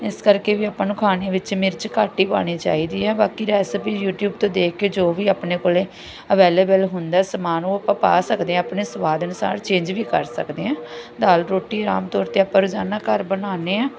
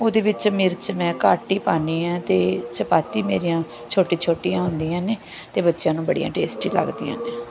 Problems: constant background noise